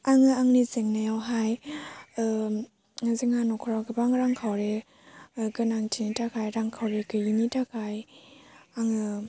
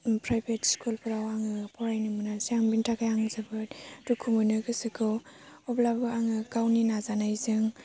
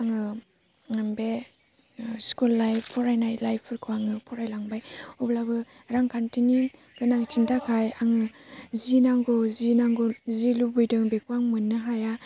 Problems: low volume